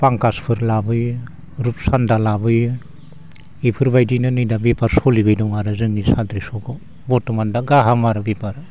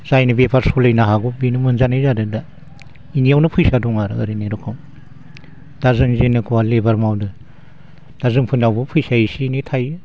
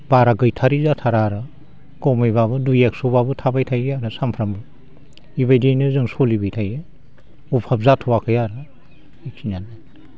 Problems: none marked